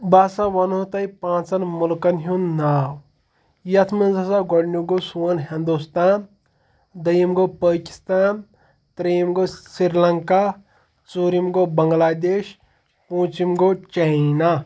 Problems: continuous background conversations